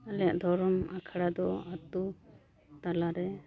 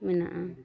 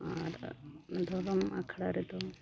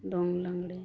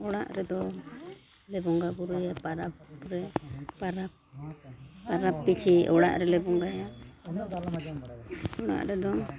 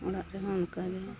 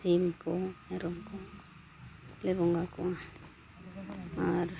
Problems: background conversations at intervals, low volume